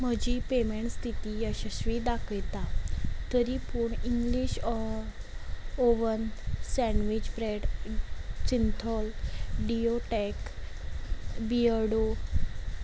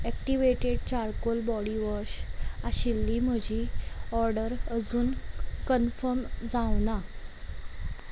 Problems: background sounds at intervals